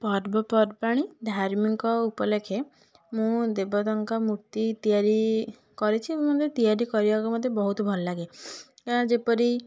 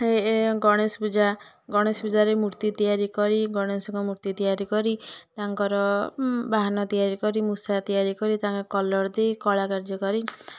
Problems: constant background noise